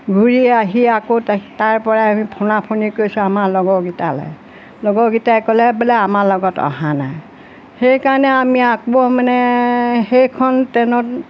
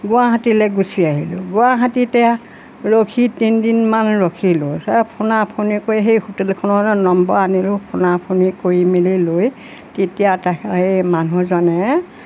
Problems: none marked